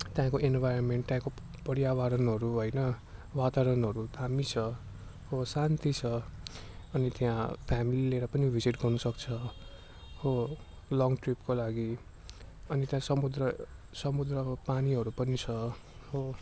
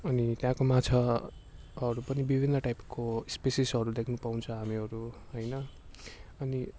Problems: constant background noise